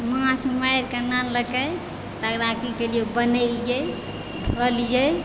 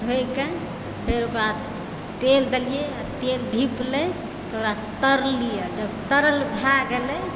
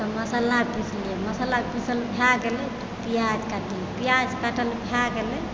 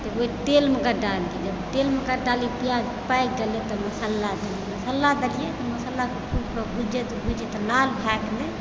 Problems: background sounds at intervals